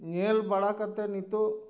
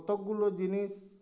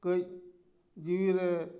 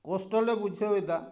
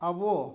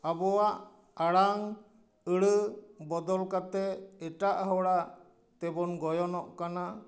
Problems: none marked